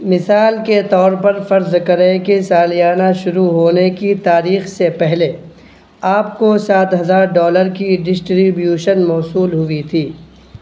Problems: constant background noise